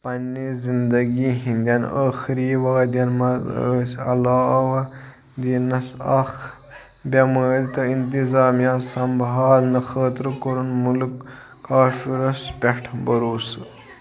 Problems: constant background noise, background conversations at intervals